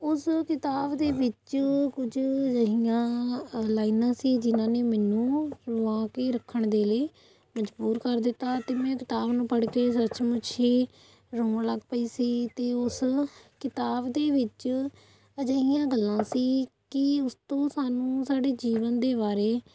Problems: none marked